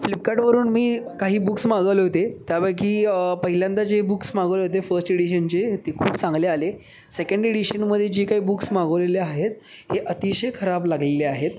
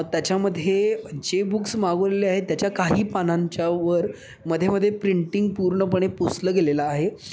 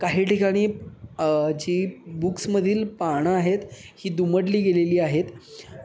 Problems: constant background noise, echo